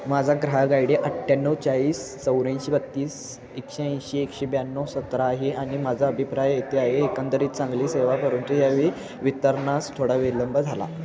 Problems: constant background noise, continuous background conversations